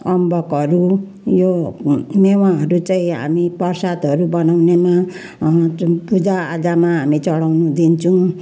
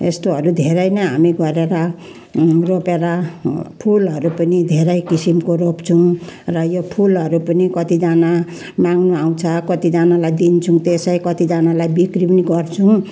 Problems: background sounds at intervals, background conversations at intervals